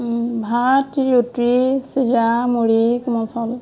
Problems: constant background noise